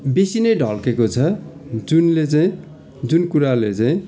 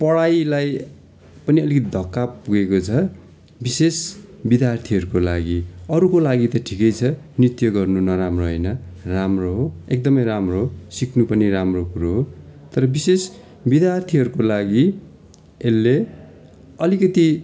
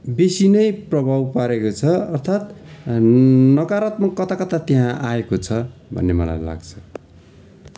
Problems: continuous background conversations